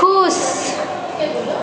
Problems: constant background noise